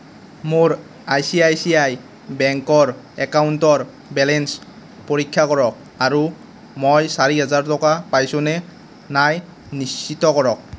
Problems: constant background noise